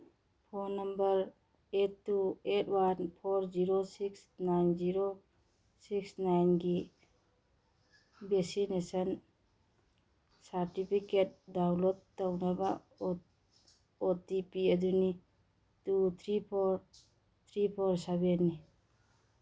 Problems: none marked